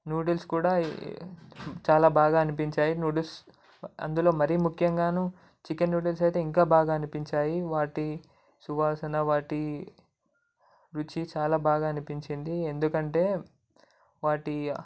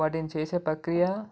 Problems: none marked